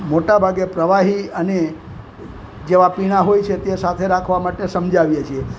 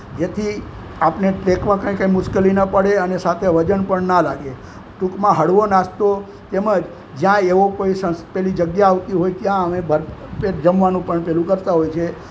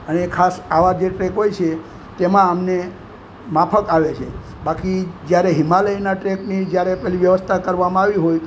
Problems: constant background noise